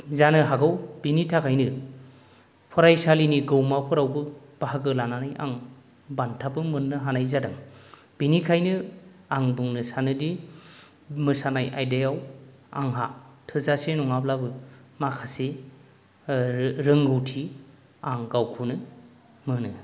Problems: none marked